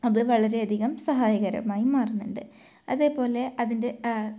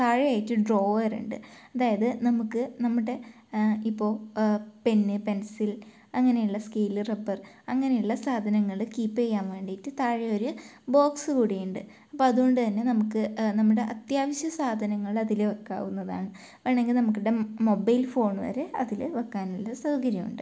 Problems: low volume